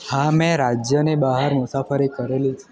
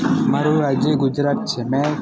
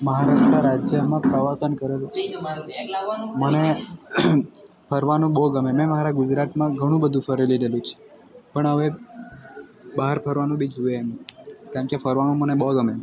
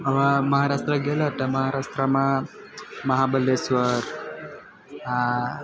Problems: none marked